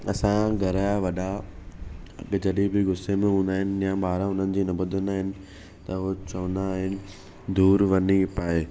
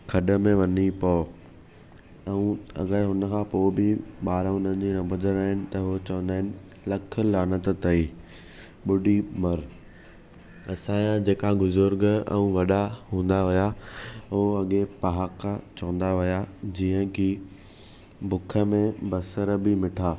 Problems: none marked